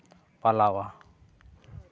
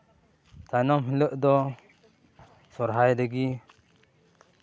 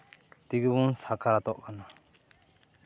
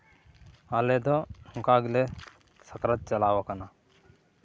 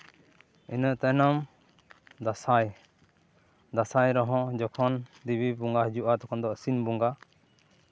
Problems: background sounds at intervals